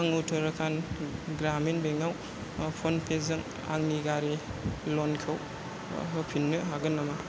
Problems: none marked